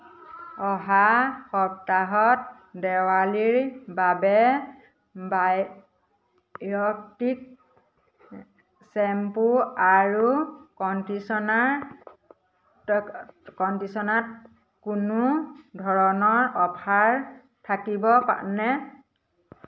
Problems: none marked